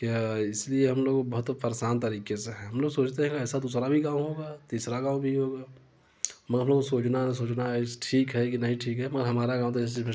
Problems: constant background noise, background conversations at intervals